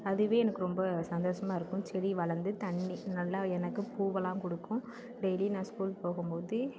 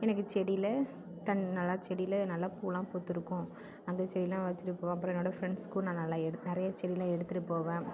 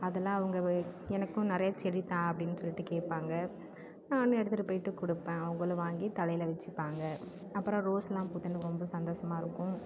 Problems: constant background noise, background conversations at intervals